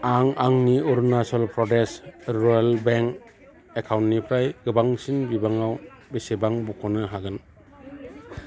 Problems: constant background noise